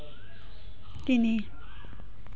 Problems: none marked